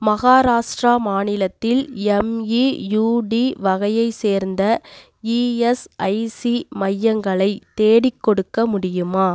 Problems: none marked